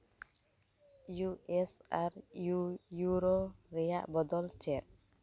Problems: none marked